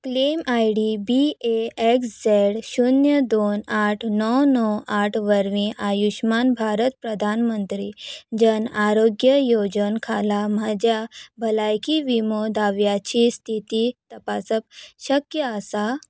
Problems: background sounds at intervals